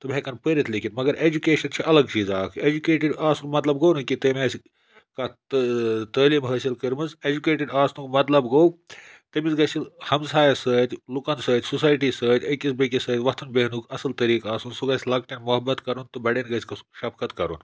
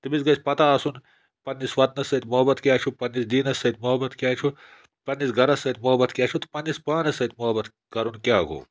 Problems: none marked